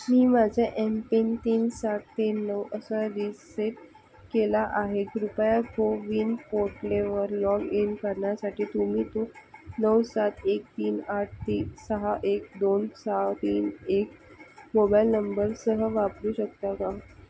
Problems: constant background noise